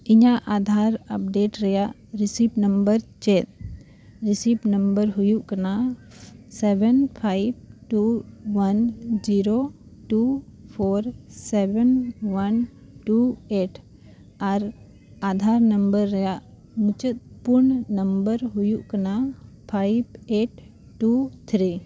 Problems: none marked